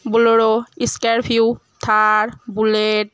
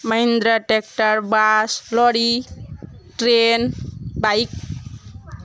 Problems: none marked